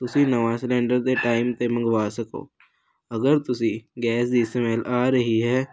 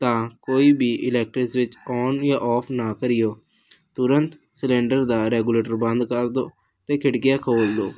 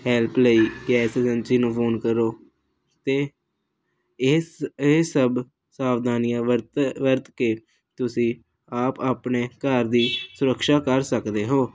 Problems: none marked